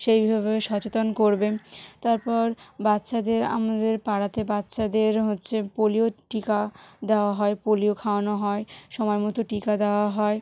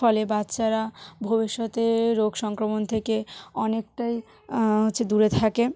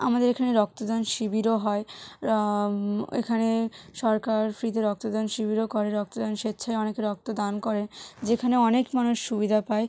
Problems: none marked